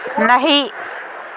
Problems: constant background noise